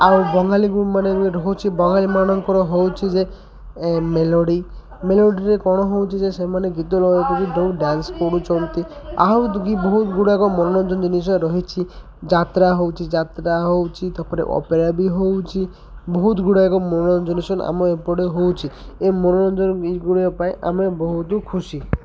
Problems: constant background noise, continuous background conversations